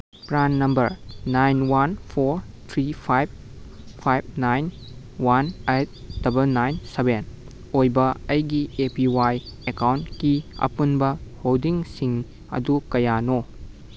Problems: background sounds at intervals